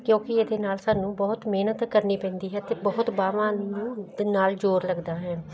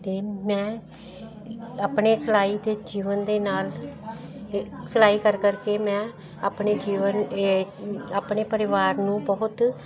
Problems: none marked